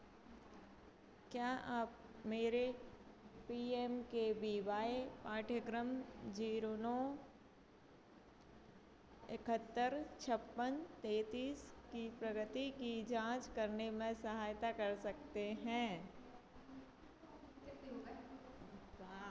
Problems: constant background noise